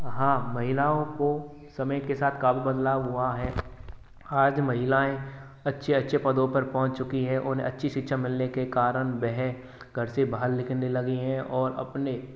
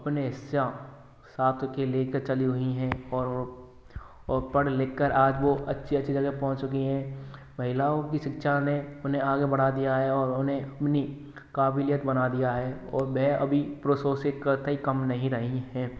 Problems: none marked